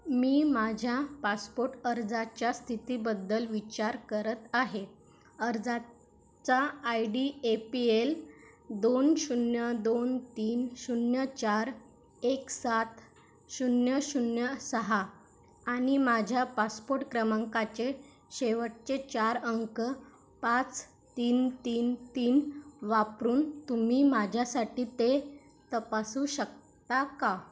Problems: none marked